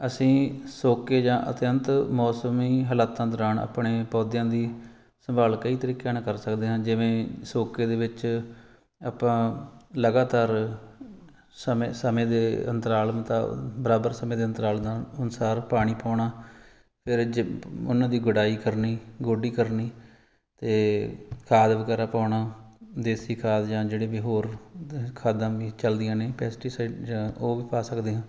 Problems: background sounds at intervals